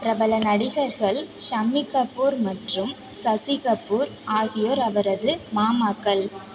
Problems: constant background noise